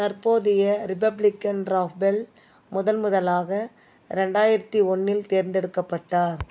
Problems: background sounds at intervals